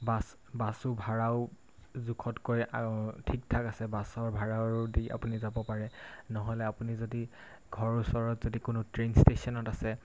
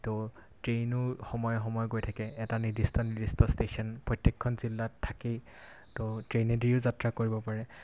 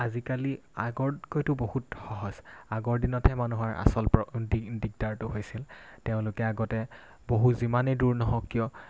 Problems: constant background noise